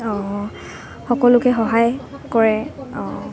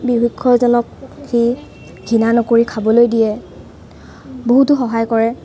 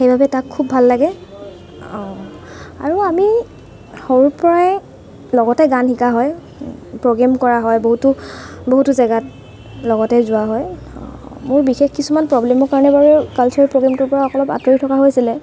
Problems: constant background noise, background conversations at intervals